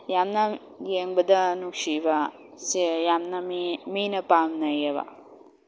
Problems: constant background noise